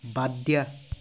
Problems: constant background noise